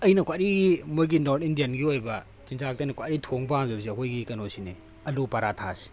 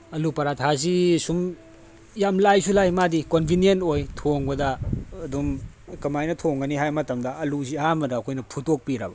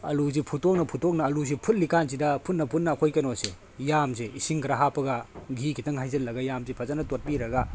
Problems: background sounds at intervals